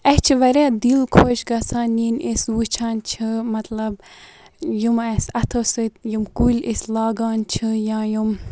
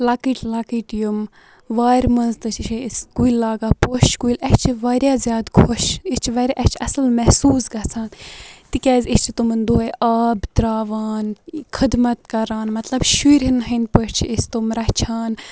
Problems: none marked